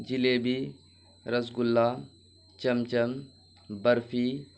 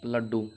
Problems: constant background noise